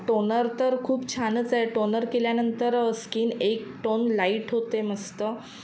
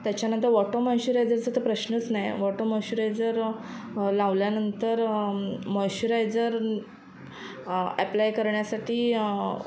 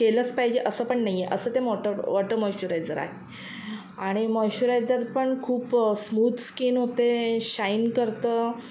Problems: constant background noise